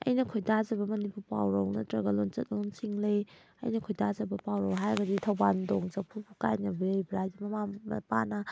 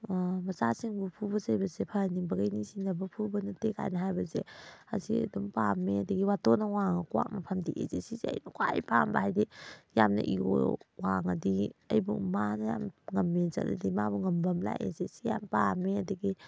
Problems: background sounds at intervals